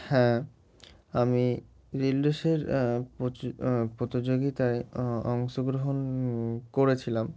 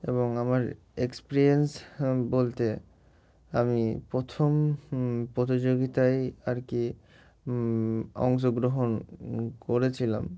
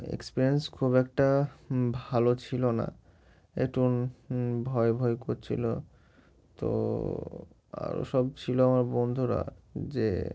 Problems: none marked